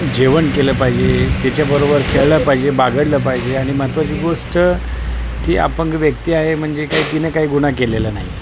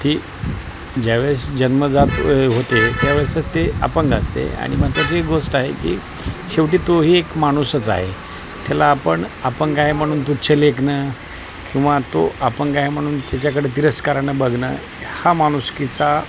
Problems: constant background noise, background conversations at intervals